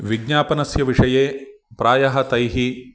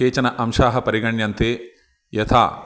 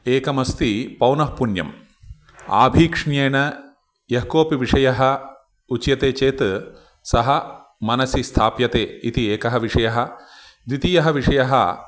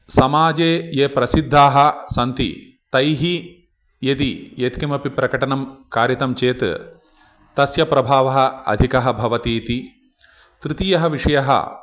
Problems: none marked